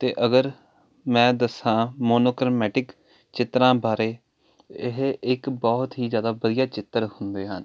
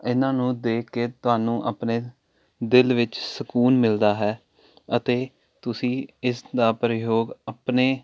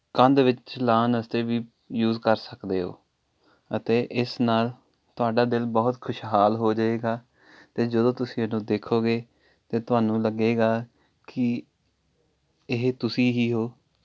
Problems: constant background noise